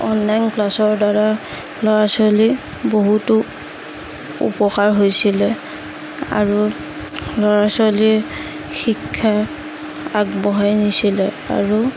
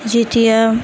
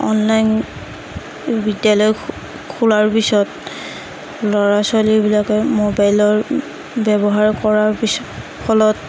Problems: constant background noise, background conversations at intervals